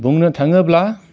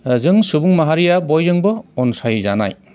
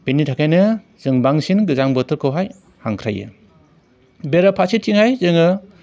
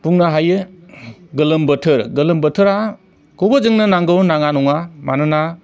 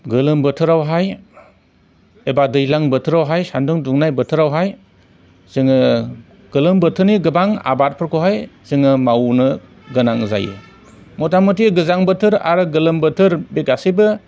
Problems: none marked